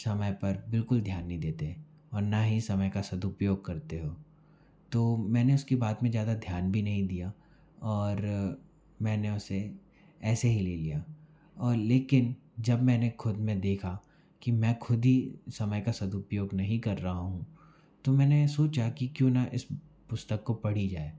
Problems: background sounds at intervals